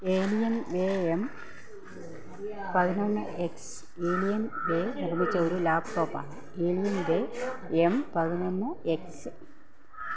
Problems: constant background noise, low volume